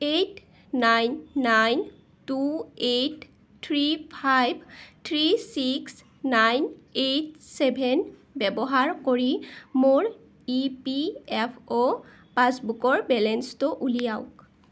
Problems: none marked